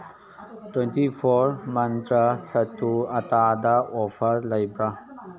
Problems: background conversations at intervals